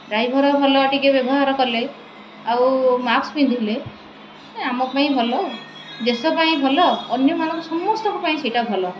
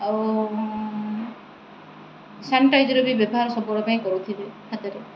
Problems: constant background noise